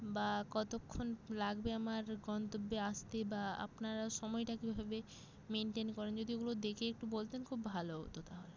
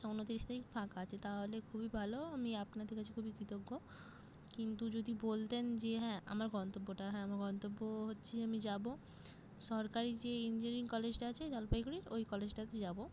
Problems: none marked